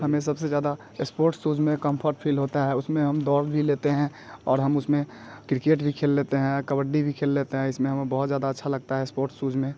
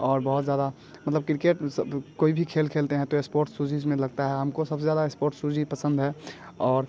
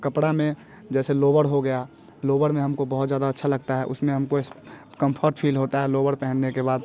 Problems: background sounds at intervals